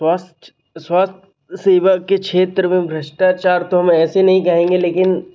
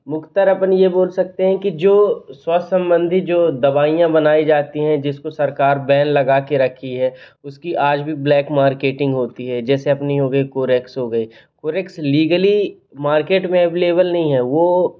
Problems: constant background noise